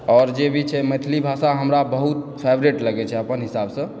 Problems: background sounds at intervals